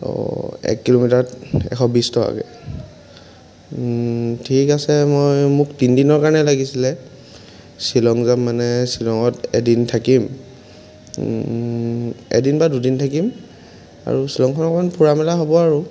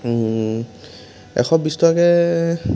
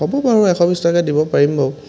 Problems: constant background noise